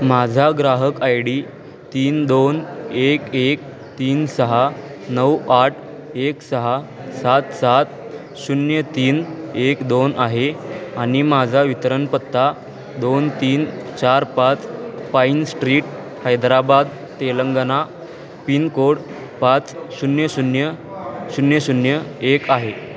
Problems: constant background noise, continuous background conversations